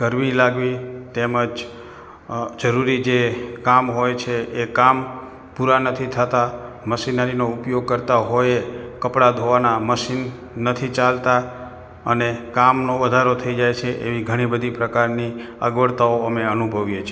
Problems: background sounds at intervals